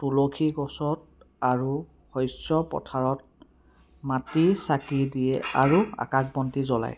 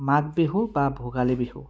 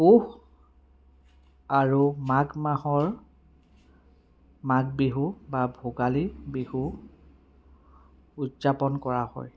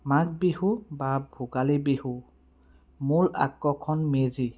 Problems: background sounds at intervals, background conversations at intervals